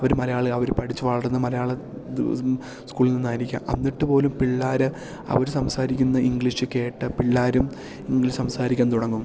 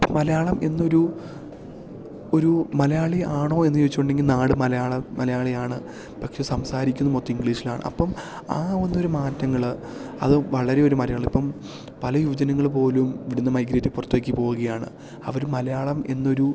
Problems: none marked